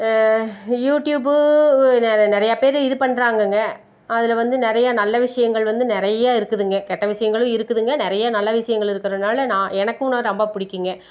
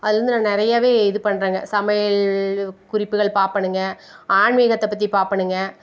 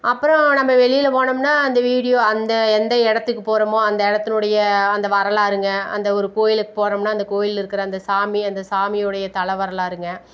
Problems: constant background noise